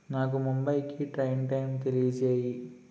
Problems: constant background noise